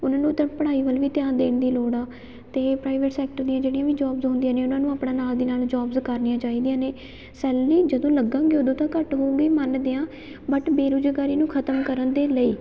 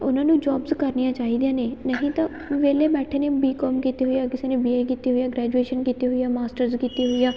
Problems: background sounds at intervals